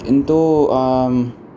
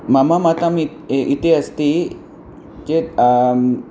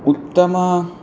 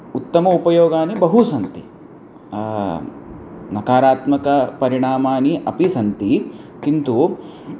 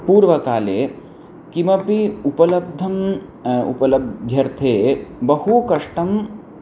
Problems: constant background noise